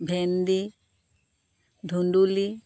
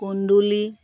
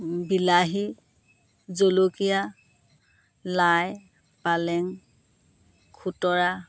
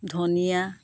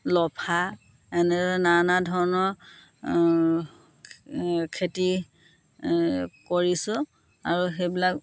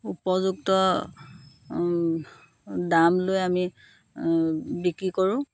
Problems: constant background noise